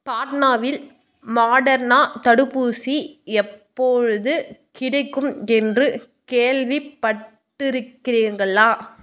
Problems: background sounds at intervals